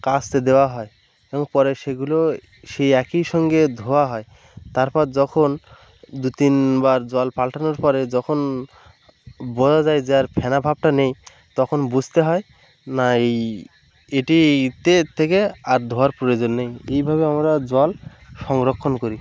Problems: constant background noise, background conversations at intervals